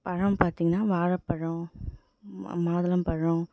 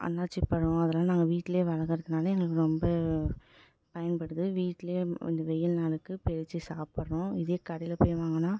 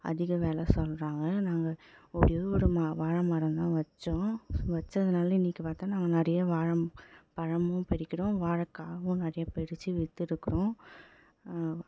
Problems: background sounds at intervals